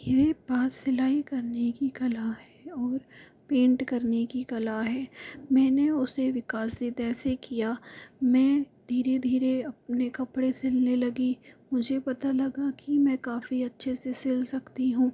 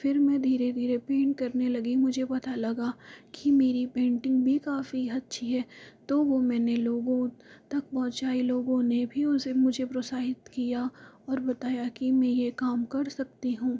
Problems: low volume